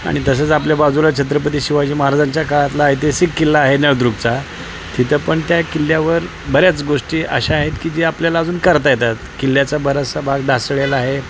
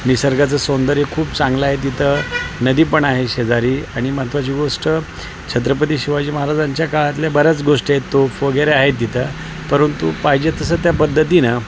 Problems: constant background noise